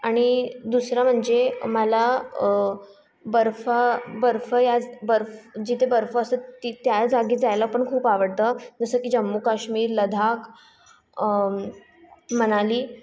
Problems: constant background noise, background conversations at intervals